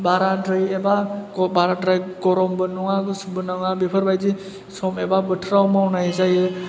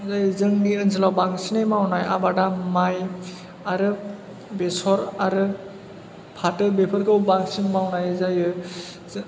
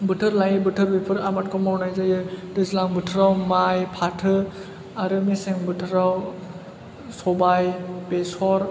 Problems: low volume